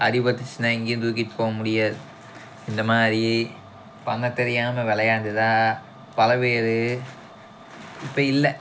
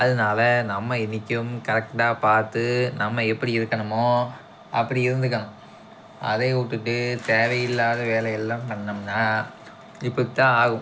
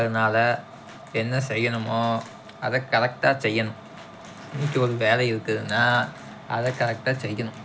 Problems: background sounds at intervals